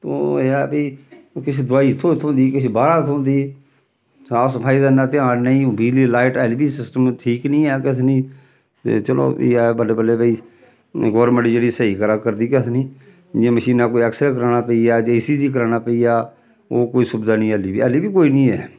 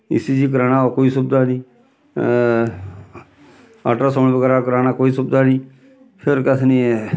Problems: none marked